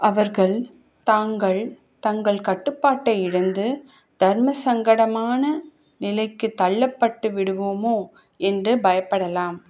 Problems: none marked